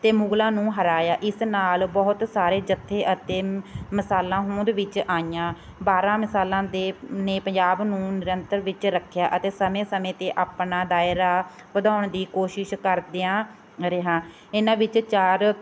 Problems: none marked